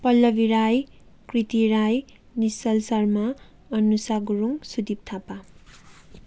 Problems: none marked